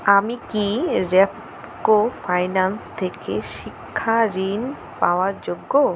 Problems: none marked